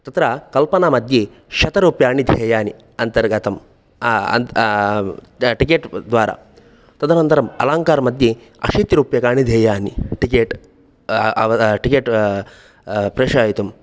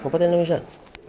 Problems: background sounds at intervals